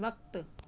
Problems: constant background noise